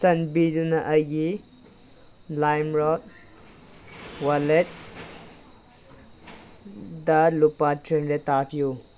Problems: background sounds at intervals